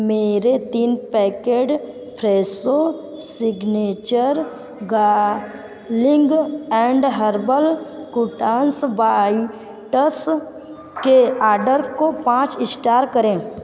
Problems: none marked